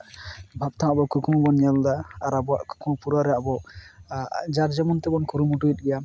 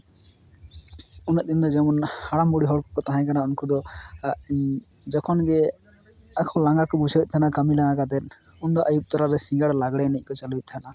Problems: constant background noise